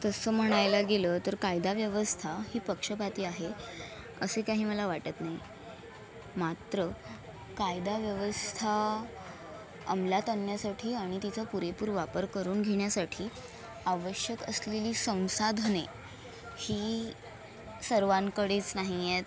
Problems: constant background noise, continuous background conversations